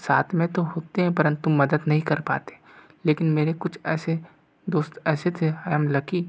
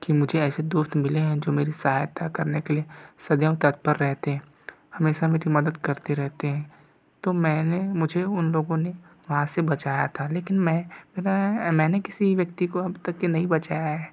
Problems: none marked